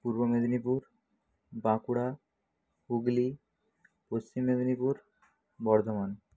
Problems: none marked